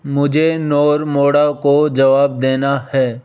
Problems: constant background noise